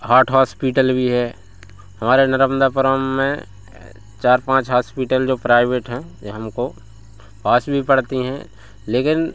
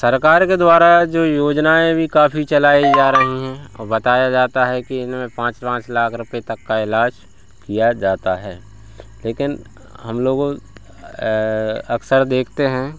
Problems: none marked